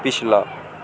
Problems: constant background noise